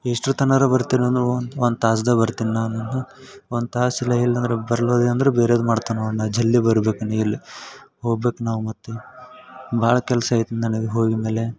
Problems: none marked